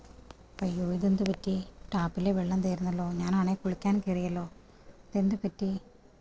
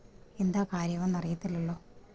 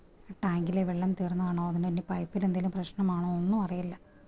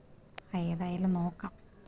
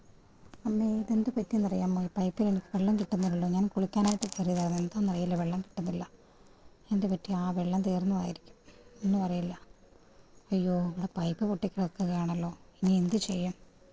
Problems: background sounds at intervals, low volume